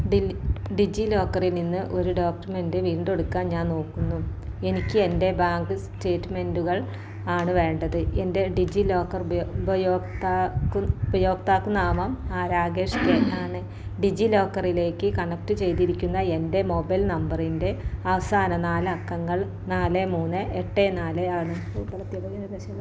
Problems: background sounds at intervals